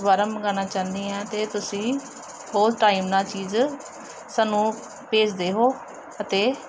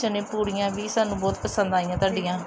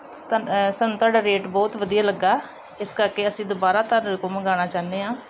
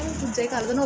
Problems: background sounds at intervals